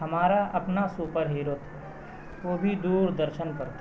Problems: constant background noise, background conversations at intervals, low volume